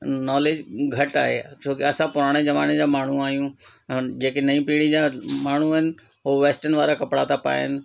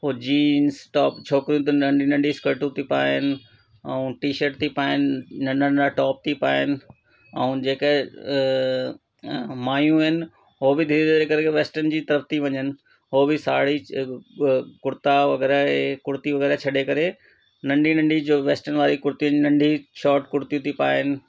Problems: constant background noise